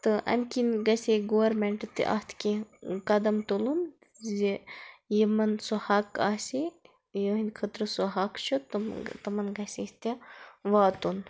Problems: none marked